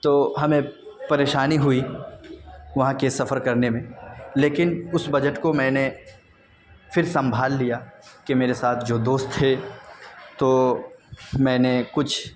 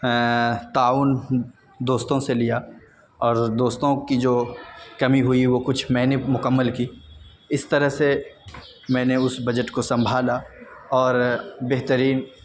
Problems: constant background noise